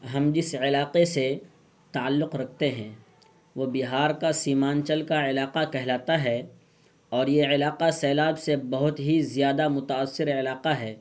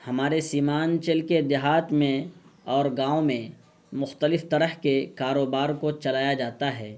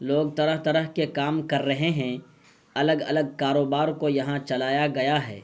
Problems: constant background noise